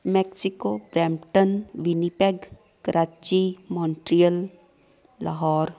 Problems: constant background noise, continuous background conversations